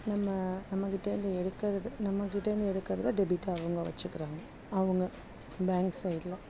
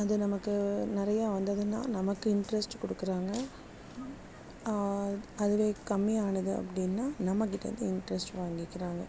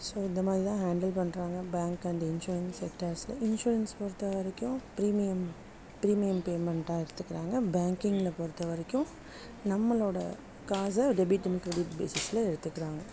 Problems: background sounds at intervals, low volume